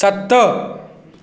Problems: echo